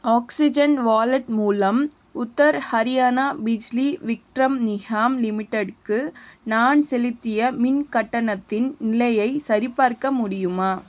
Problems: constant background noise